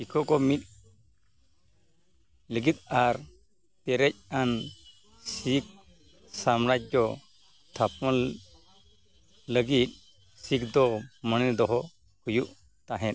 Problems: background sounds at intervals